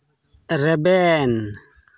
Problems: continuous background conversations